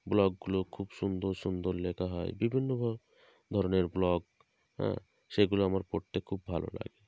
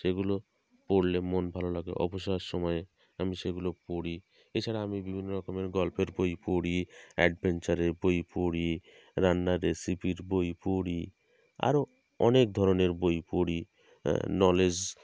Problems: constant background noise